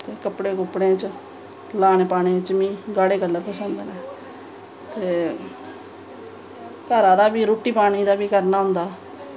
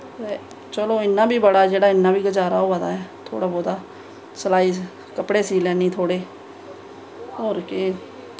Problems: none marked